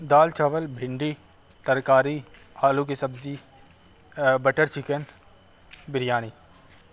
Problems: constant background noise